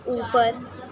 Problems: none marked